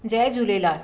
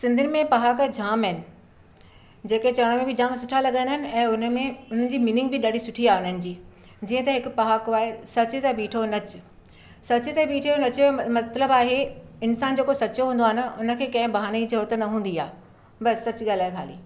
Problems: none marked